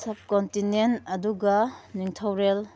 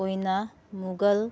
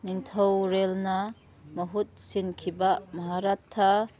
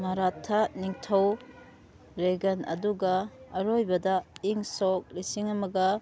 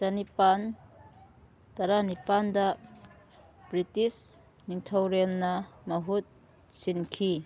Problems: background sounds at intervals